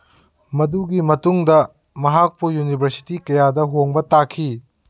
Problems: none marked